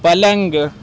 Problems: constant background noise